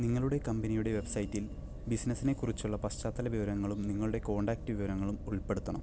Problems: low volume